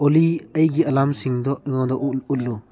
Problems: low volume